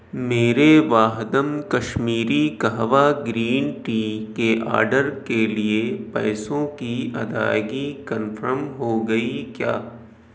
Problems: none marked